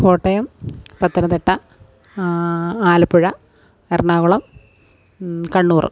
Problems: background sounds at intervals